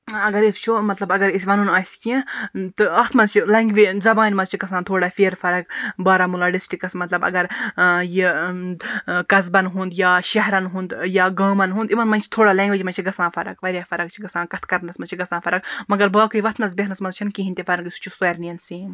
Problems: none marked